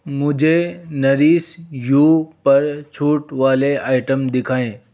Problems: none marked